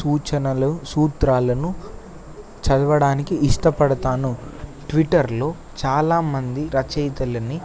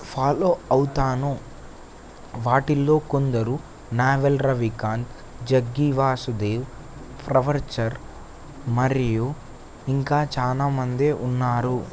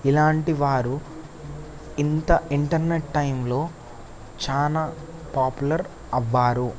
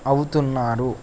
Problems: constant background noise